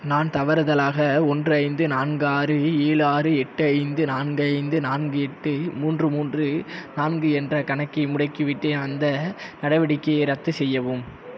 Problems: constant background noise